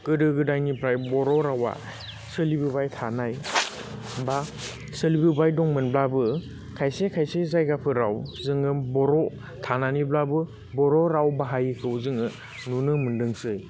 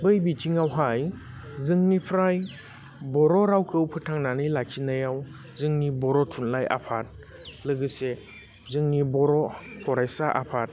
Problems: constant background noise